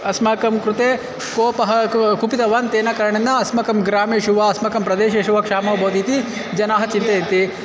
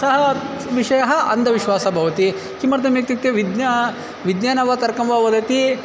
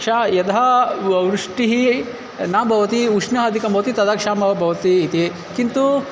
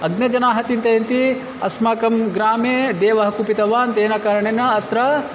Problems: constant background noise